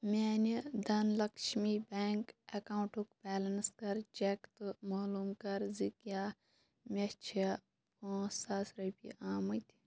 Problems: none marked